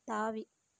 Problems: low volume